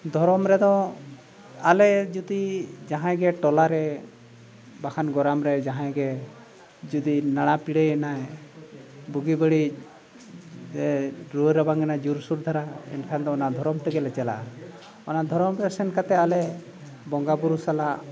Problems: background sounds at intervals